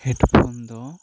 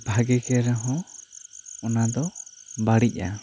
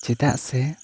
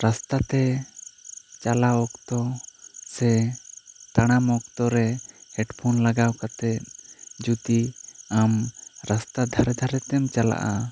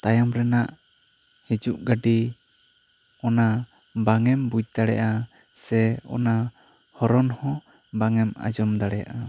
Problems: constant background noise